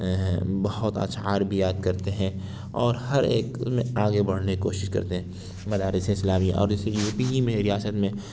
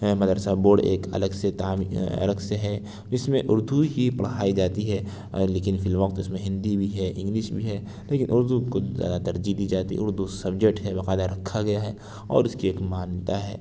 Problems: none marked